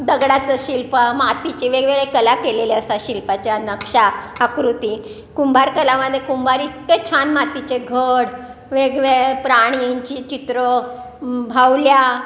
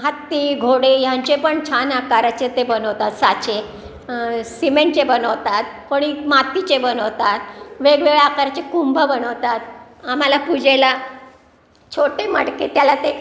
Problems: constant background noise, continuous background conversations